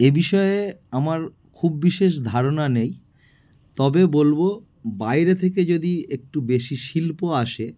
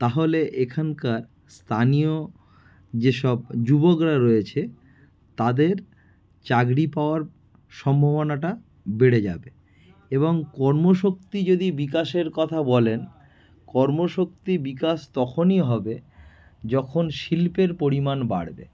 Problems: none marked